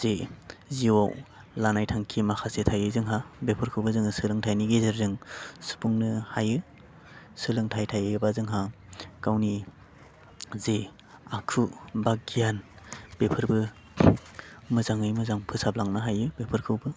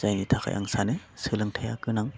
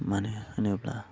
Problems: constant background noise